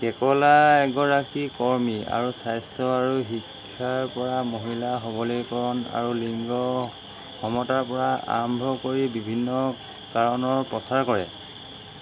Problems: constant background noise